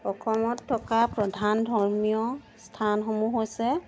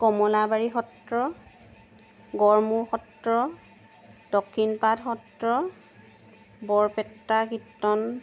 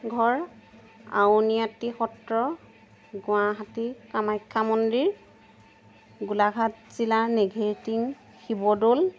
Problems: constant background noise